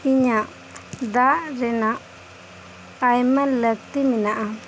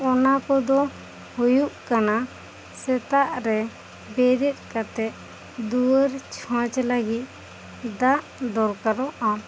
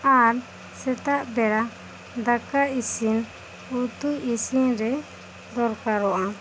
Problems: constant background noise